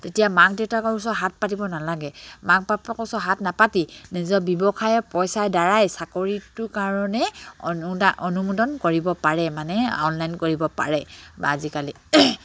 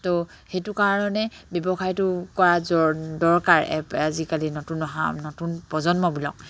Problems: none marked